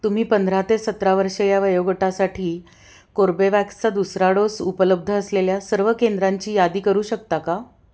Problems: none marked